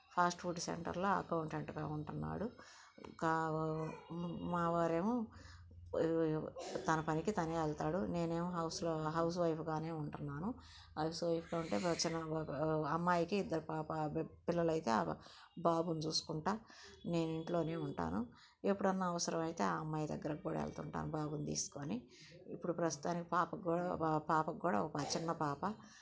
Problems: none marked